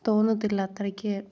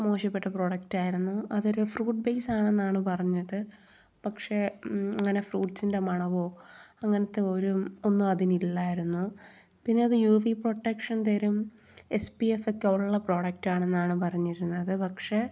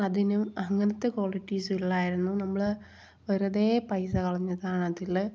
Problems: none marked